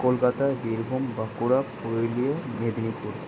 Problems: constant background noise